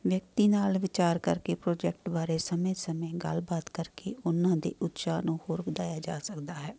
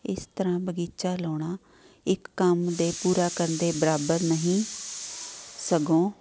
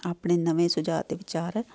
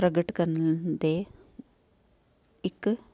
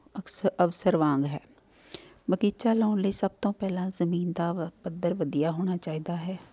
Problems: none marked